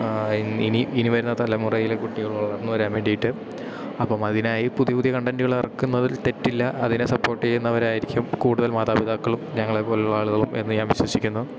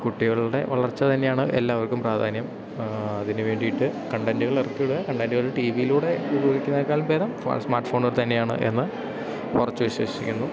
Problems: none marked